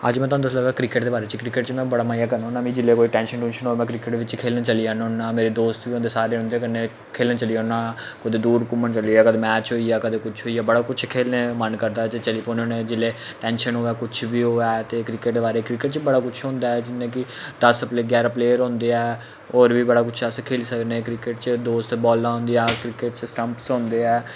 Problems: constant background noise